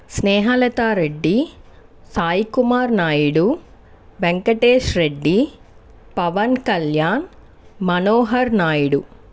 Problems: constant background noise